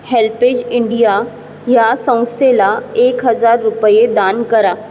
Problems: constant background noise